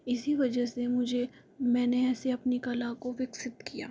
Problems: low volume